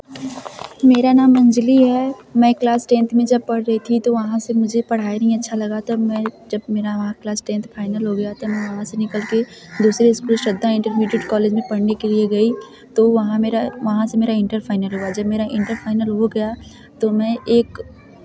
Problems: constant background noise